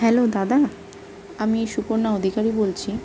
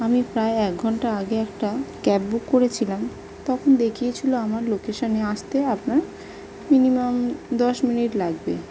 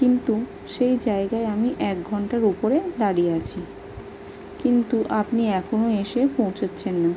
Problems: constant background noise